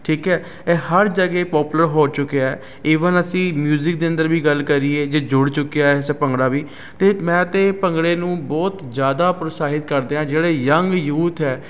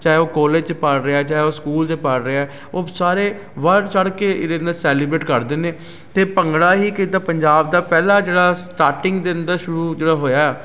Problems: constant background noise